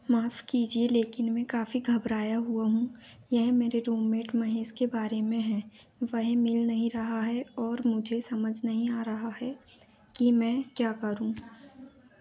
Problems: none marked